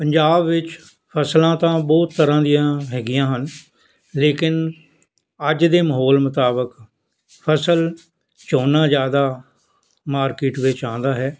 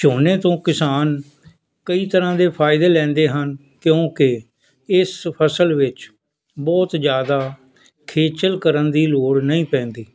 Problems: none marked